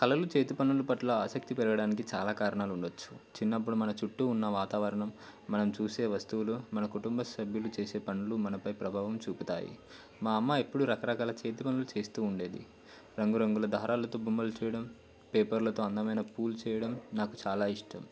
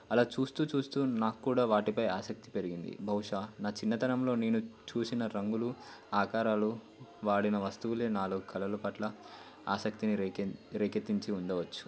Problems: constant background noise